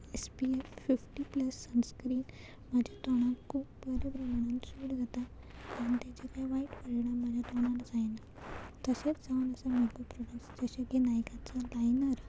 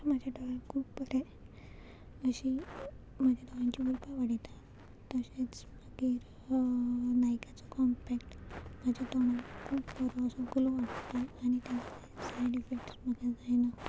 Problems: none marked